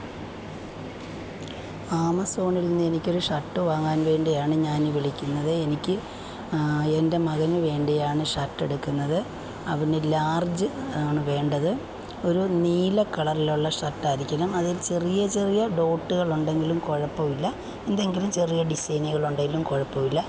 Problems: constant background noise